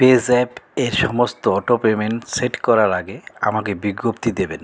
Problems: none marked